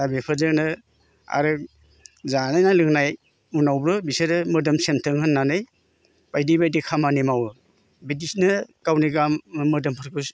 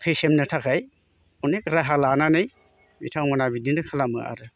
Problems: constant background noise